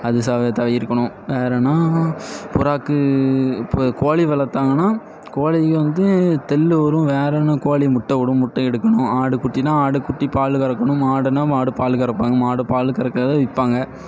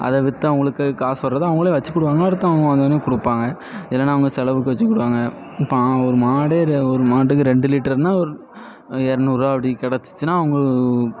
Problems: none marked